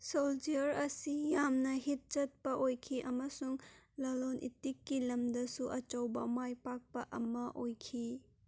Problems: none marked